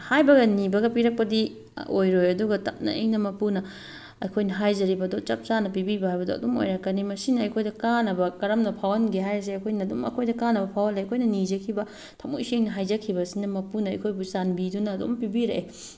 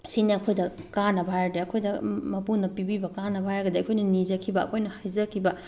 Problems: background sounds at intervals